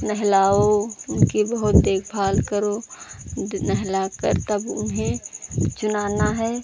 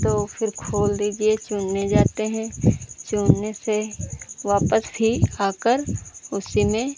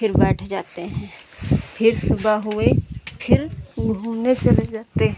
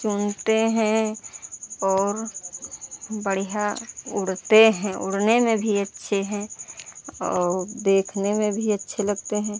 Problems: background sounds at intervals